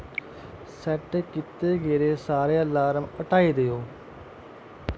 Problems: constant background noise